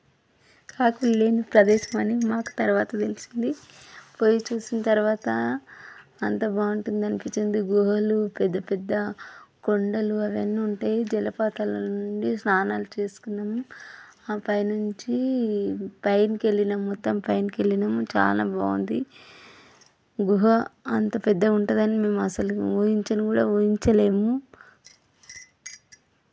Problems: background sounds at intervals